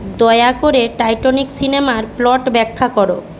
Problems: constant background noise